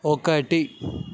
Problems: constant background noise